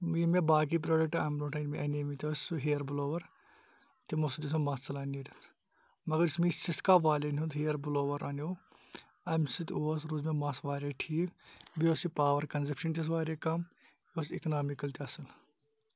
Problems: none marked